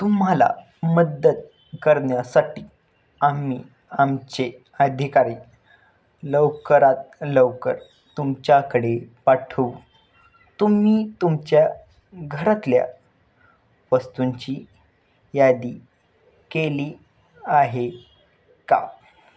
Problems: none marked